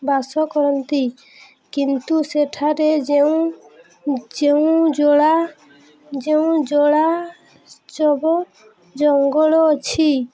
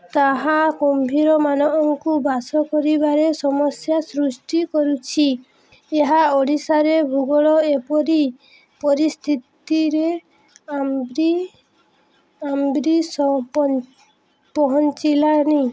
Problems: none marked